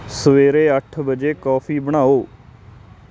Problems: constant background noise